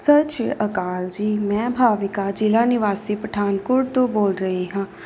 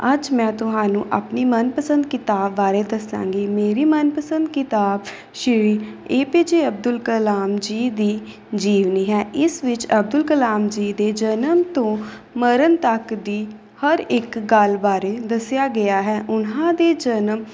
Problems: background sounds at intervals